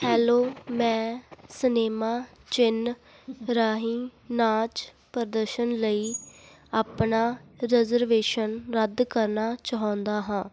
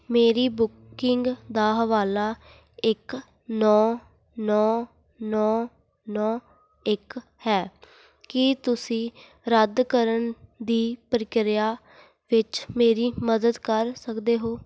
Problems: none marked